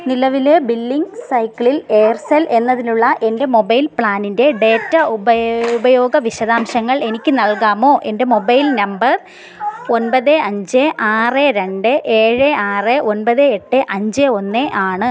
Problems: background conversations at intervals